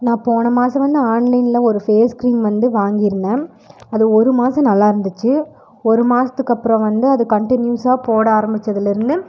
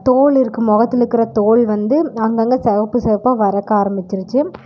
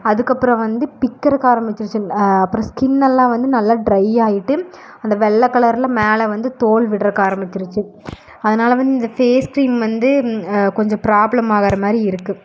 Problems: none marked